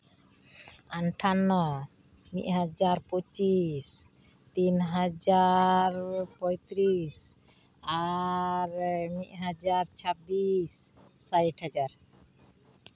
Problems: constant background noise